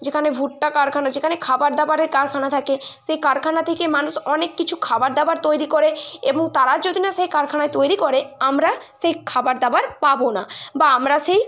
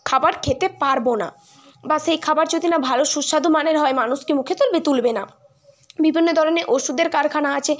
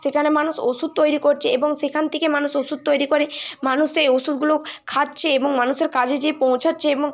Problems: constant background noise, continuous background conversations